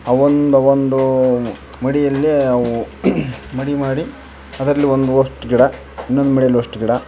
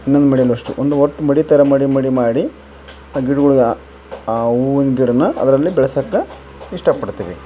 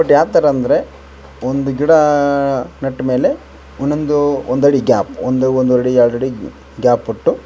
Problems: background sounds at intervals